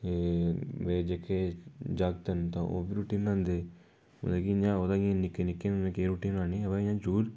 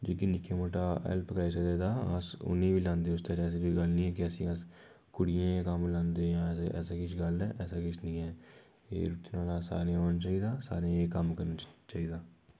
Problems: background sounds at intervals